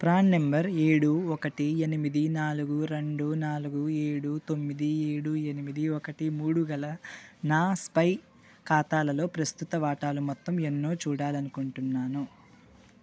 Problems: constant background noise